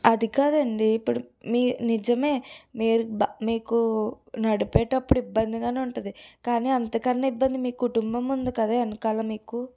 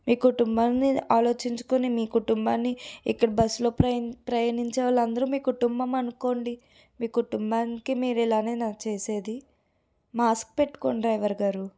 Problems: background sounds at intervals